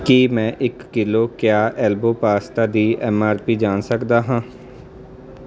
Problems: none marked